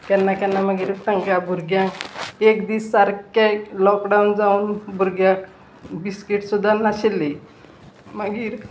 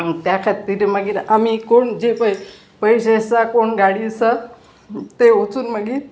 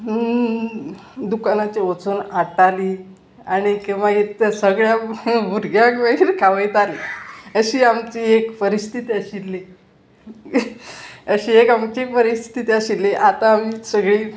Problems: constant background noise, continuous background conversations